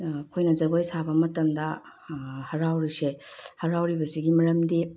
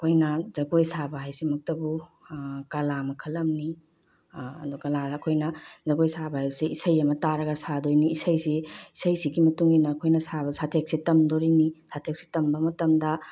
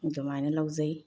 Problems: none marked